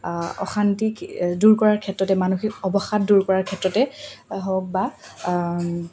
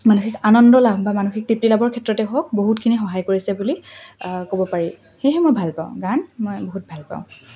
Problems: constant background noise